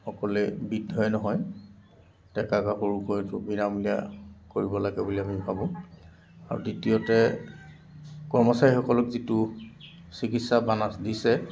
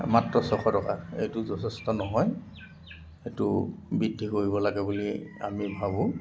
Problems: constant background noise, background conversations at intervals